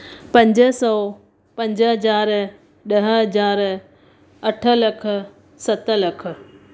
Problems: none marked